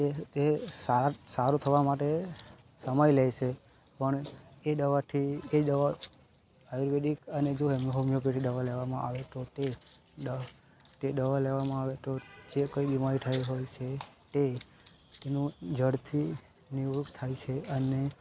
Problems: constant background noise